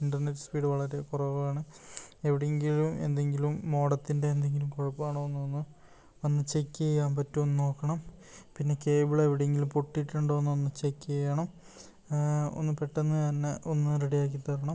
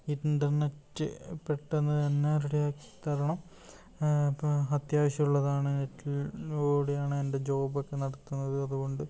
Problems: low volume